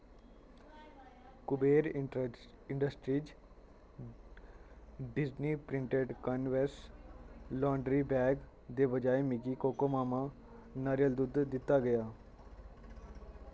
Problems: constant background noise